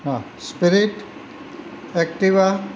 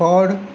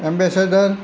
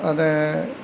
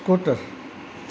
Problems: constant background noise